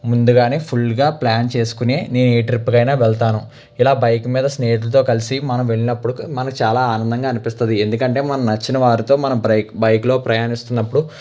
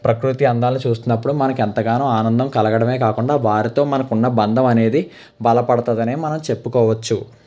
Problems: constant background noise